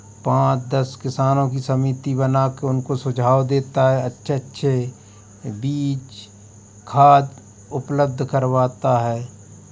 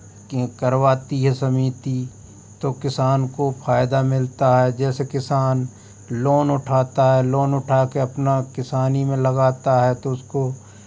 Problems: constant background noise